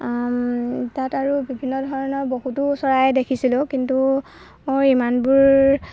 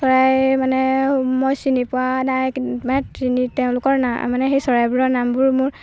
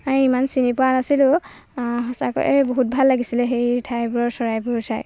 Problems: background sounds at intervals